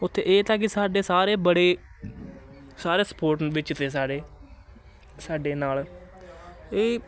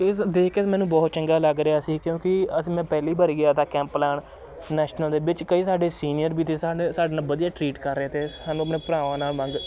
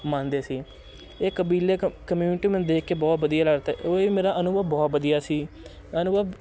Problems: constant background noise, continuous background conversations